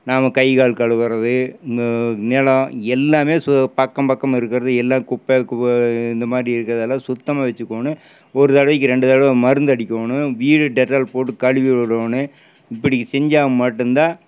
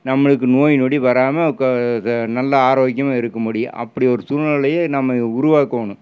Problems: none marked